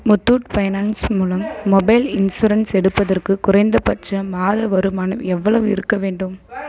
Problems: background sounds at intervals